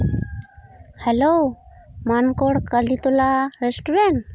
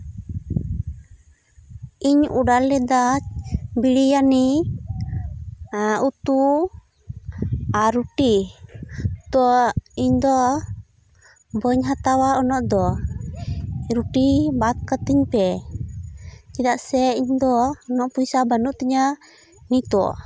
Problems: none marked